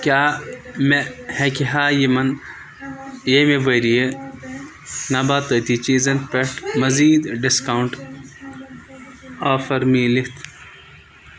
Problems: constant background noise, background conversations at intervals